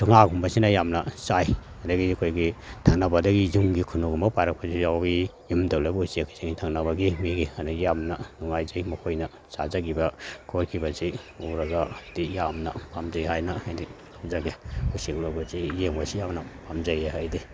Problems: none marked